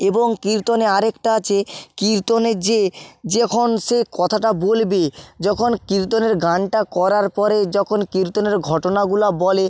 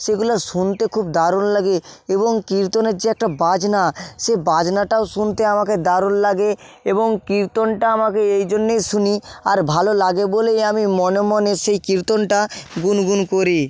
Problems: constant background noise